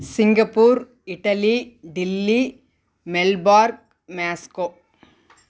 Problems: none marked